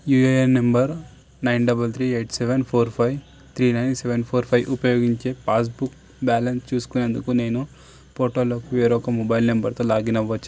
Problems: none marked